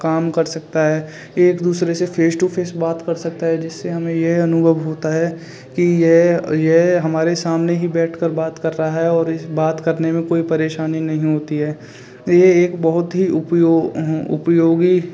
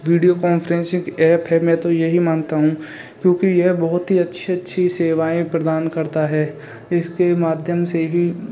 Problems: none marked